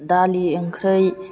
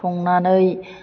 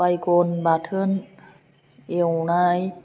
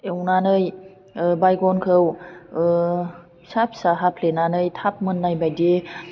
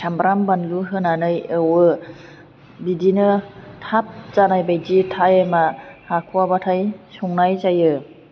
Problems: none marked